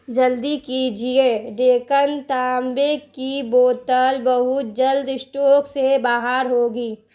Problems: constant background noise